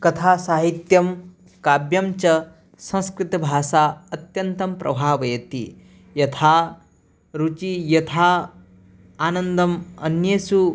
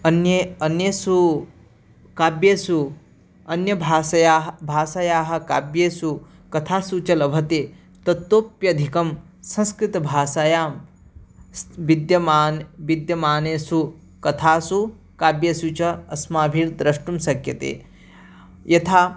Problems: none marked